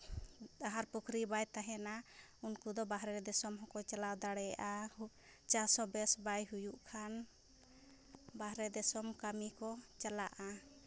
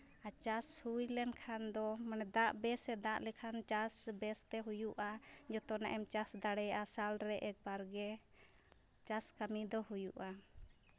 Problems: background sounds at intervals